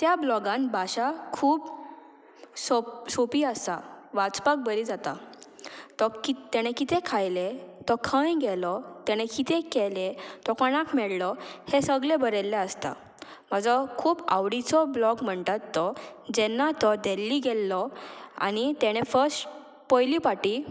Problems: none marked